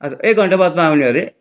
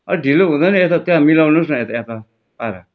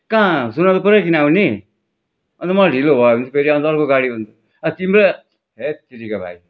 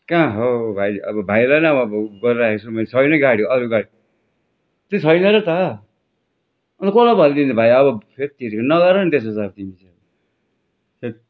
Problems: background sounds at intervals